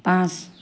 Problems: none marked